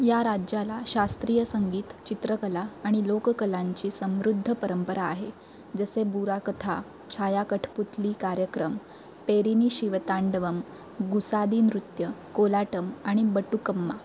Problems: constant background noise